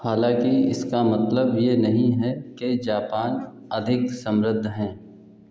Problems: none marked